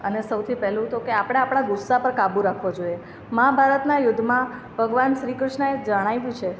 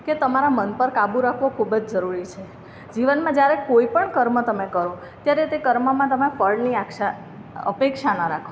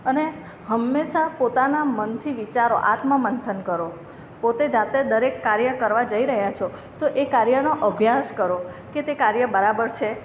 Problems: none marked